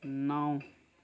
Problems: background conversations at intervals